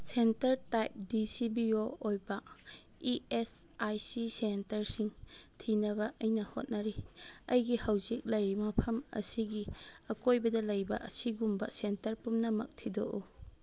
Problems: none marked